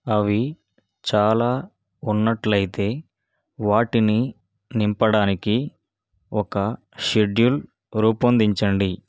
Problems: none marked